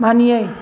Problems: constant background noise